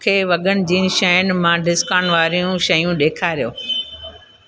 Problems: constant background noise